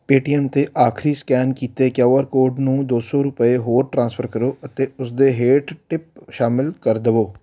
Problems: none marked